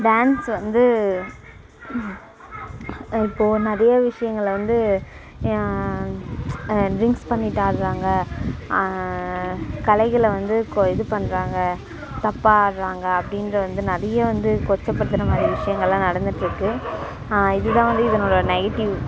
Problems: background sounds at intervals